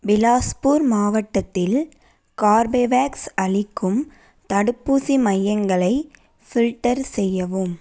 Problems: none marked